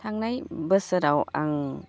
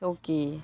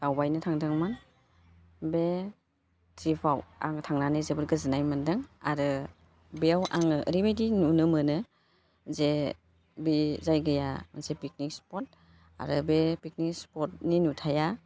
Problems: constant background noise